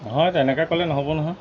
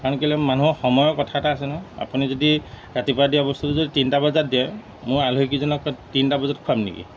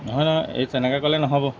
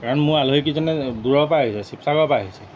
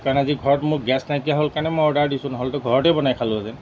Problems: background sounds at intervals